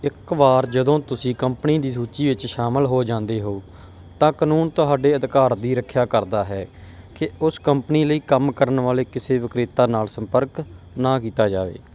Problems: background sounds at intervals